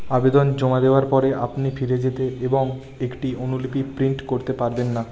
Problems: background conversations at intervals